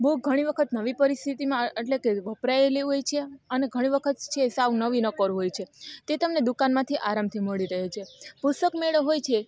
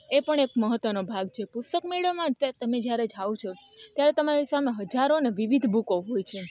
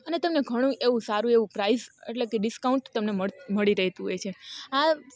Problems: none marked